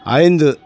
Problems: constant background noise